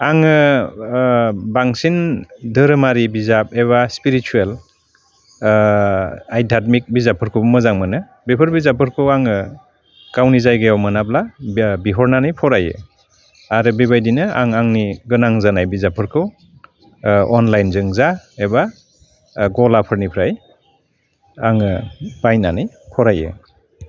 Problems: constant background noise